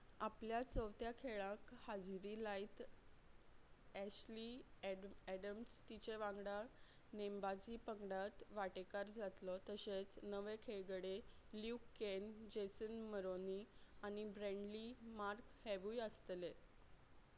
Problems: background sounds at intervals